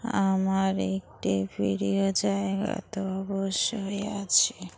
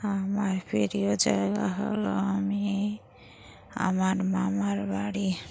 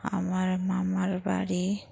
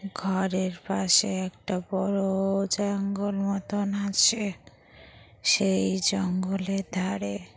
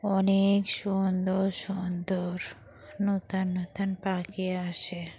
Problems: background sounds at intervals, continuous background conversations